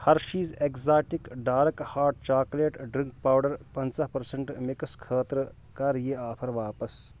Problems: background sounds at intervals